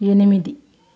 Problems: constant background noise